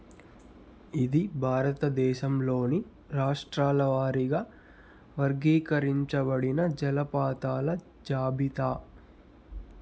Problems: constant background noise